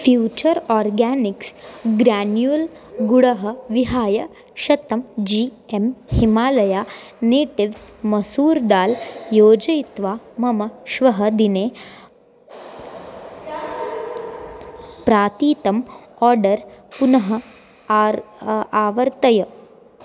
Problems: none marked